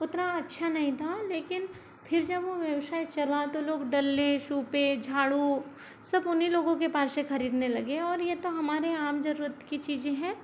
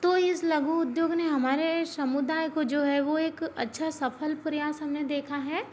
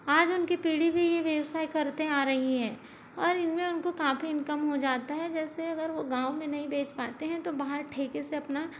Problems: low volume